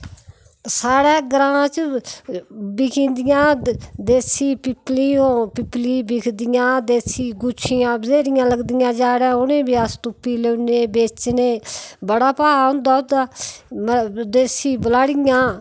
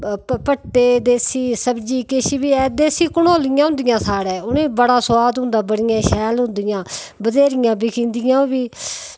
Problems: background sounds at intervals